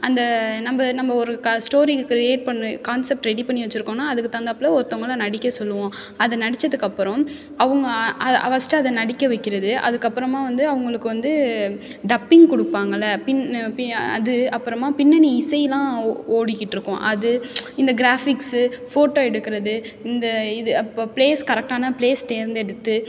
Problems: background sounds at intervals